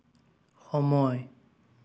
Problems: none marked